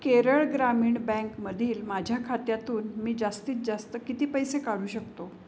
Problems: constant background noise